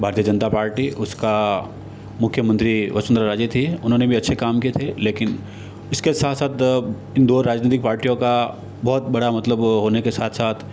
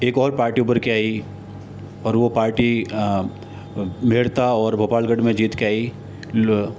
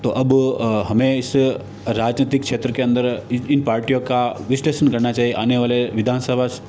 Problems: constant background noise